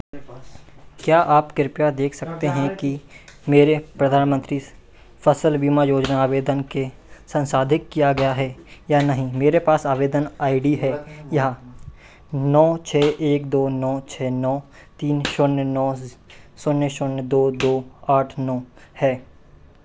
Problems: constant background noise